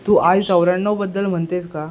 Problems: background sounds at intervals